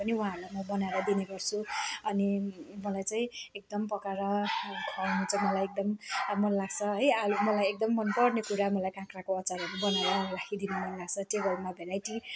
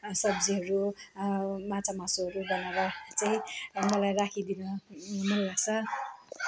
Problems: constant background noise